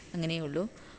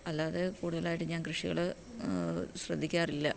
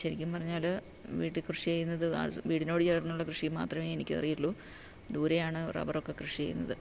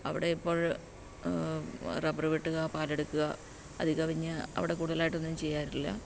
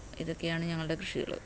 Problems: background sounds at intervals